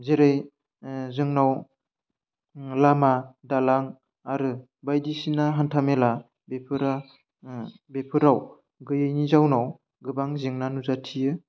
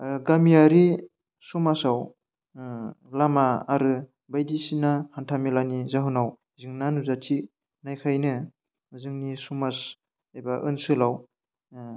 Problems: none marked